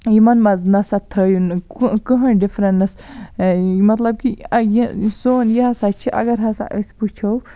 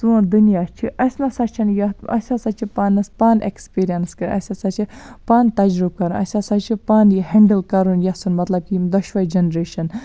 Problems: none marked